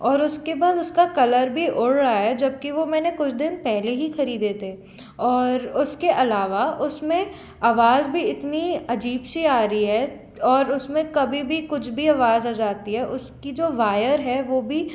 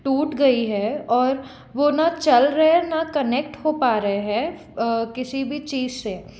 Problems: constant background noise